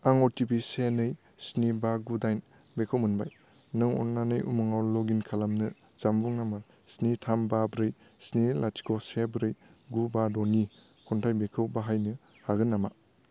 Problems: low volume